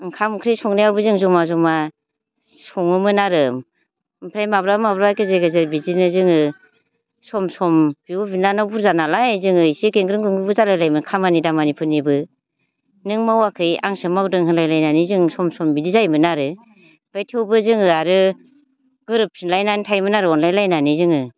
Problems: none marked